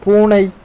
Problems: constant background noise